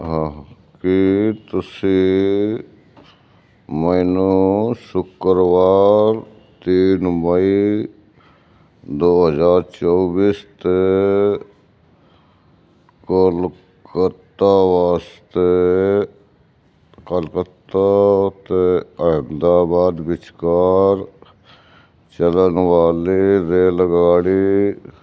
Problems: background conversations at intervals